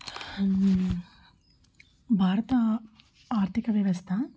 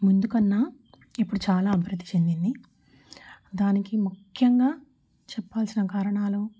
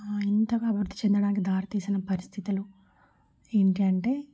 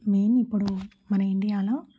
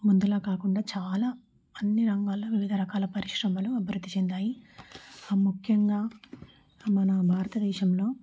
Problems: none marked